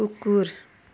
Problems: none marked